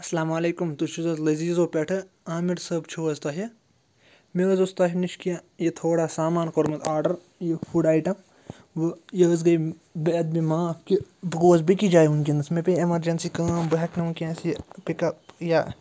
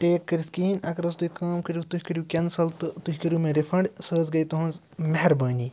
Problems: none marked